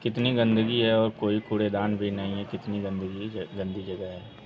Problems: constant background noise, continuous background conversations